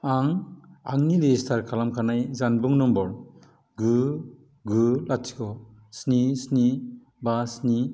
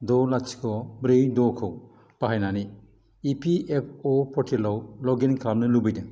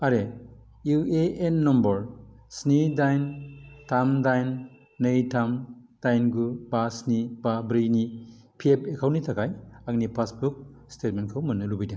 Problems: none marked